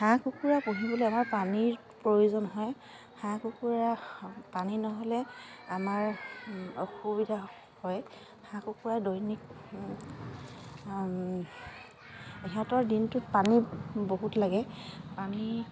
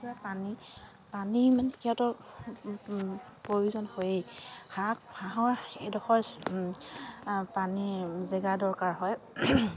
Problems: constant background noise, continuous background conversations